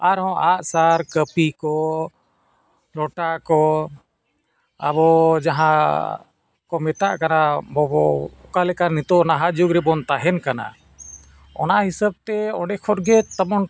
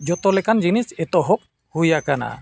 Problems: background sounds at intervals